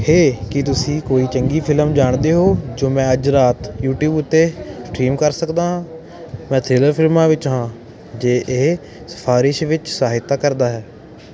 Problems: constant background noise